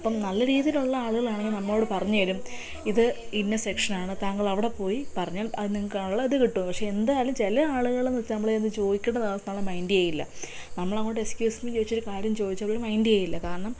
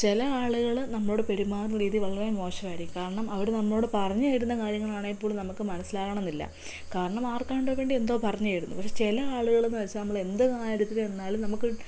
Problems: none marked